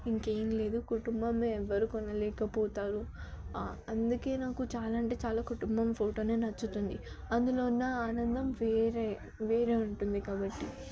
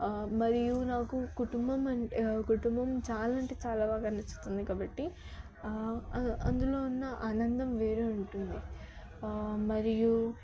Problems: background conversations at intervals, low volume